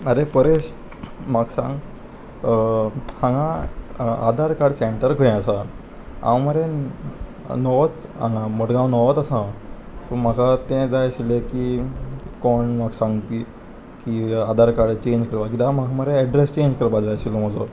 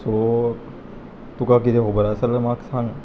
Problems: none marked